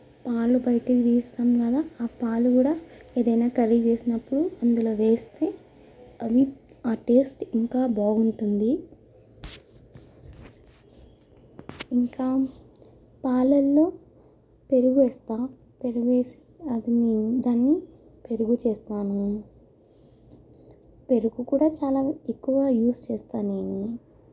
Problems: low volume